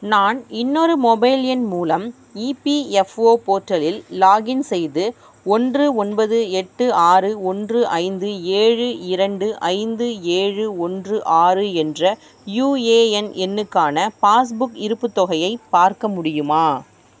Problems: none marked